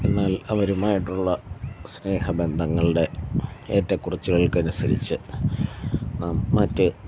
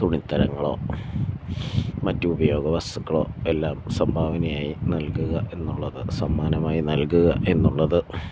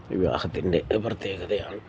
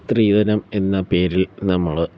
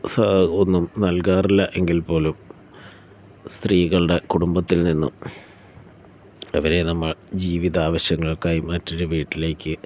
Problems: none marked